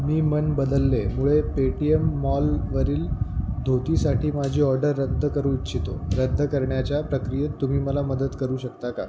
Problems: constant background noise